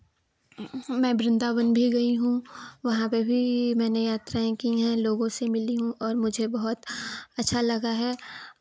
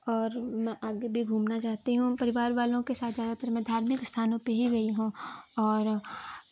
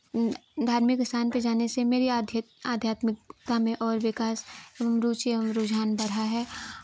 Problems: none marked